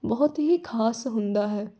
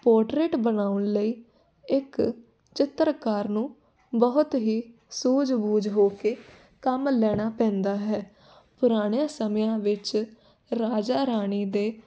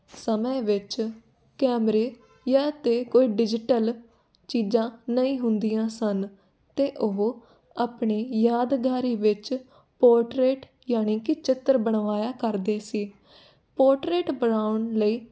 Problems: constant background noise